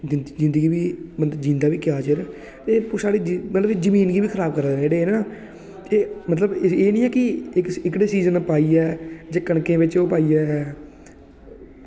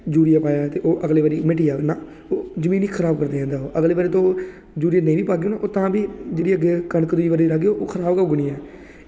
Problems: constant background noise